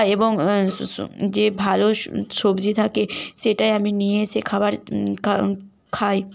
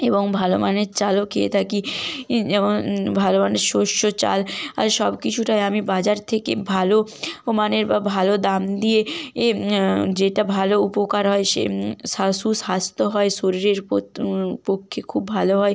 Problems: none marked